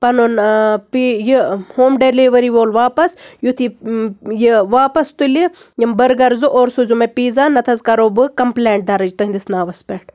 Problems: none marked